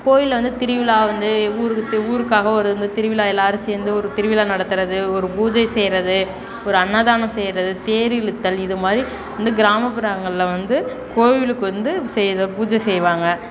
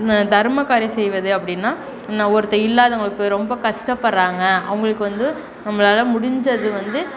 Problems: background conversations at intervals